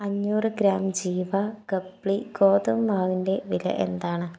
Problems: low volume